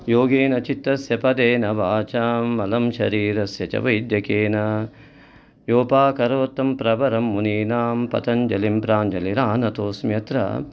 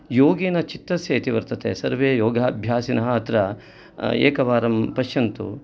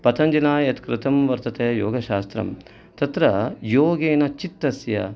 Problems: background sounds at intervals